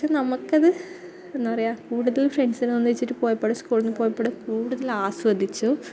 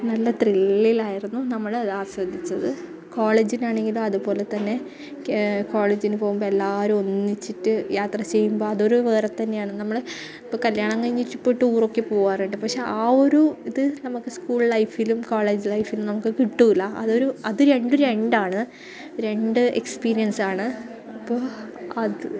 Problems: none marked